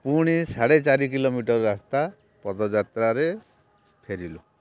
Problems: constant background noise